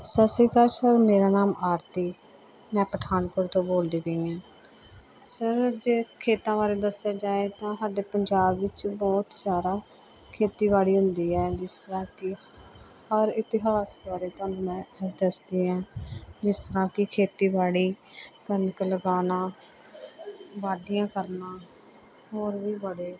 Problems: constant background noise